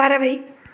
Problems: none marked